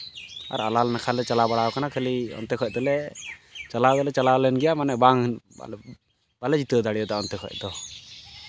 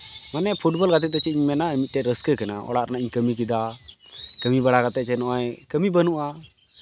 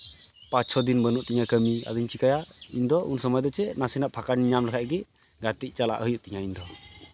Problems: none marked